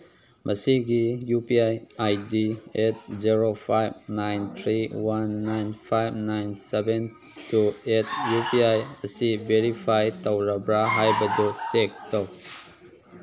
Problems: background sounds at intervals